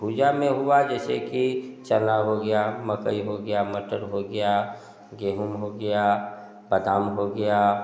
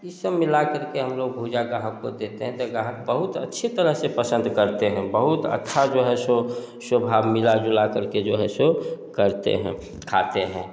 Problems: background sounds at intervals, echo